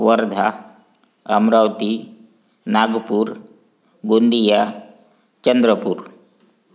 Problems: constant background noise